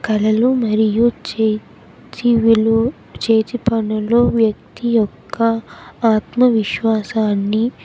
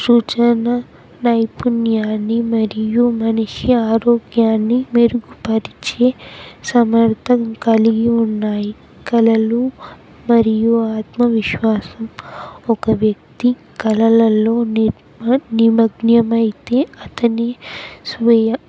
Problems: constant background noise, background conversations at intervals